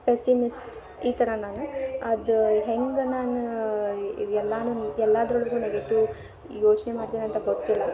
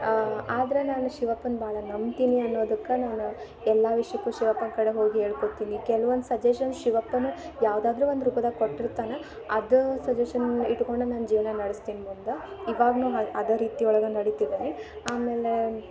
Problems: background sounds at intervals